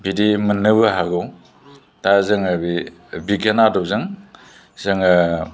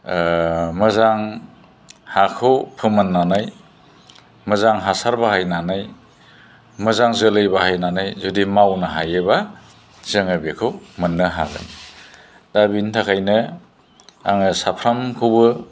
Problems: low volume